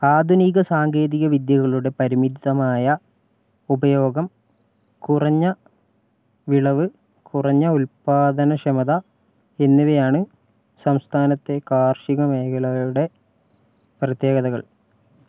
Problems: none marked